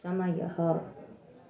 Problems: none marked